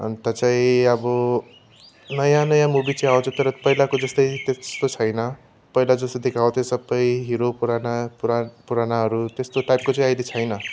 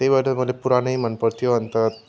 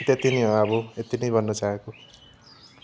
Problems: background sounds at intervals